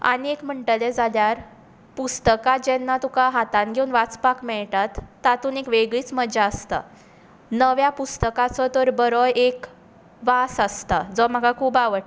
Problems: none marked